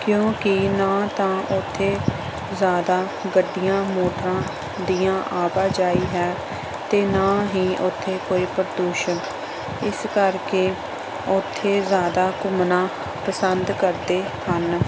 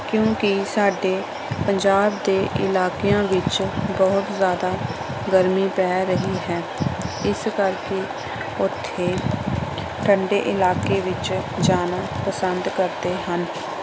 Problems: constant background noise